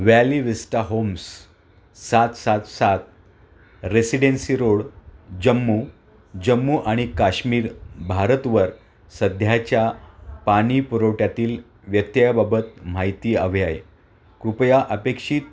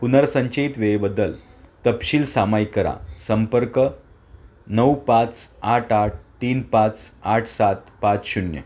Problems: constant background noise